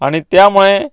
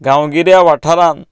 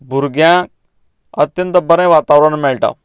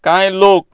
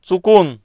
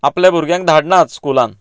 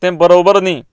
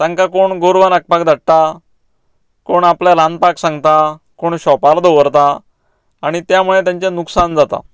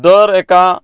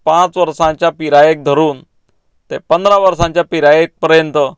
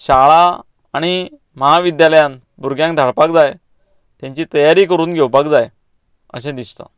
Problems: none marked